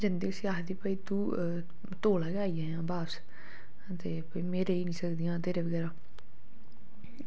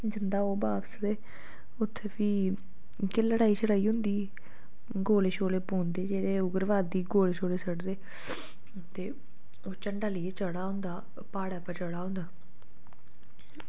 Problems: low volume